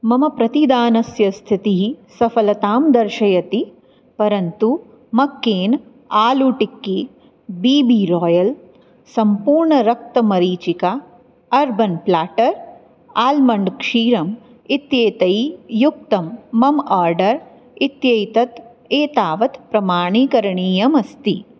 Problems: none marked